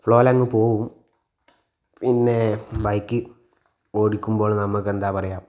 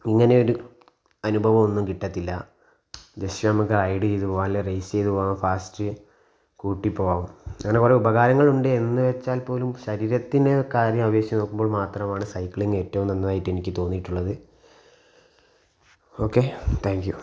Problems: background sounds at intervals